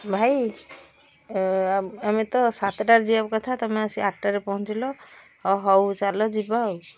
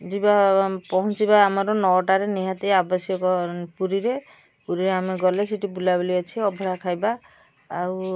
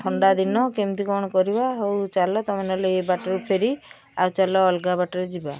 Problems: background sounds at intervals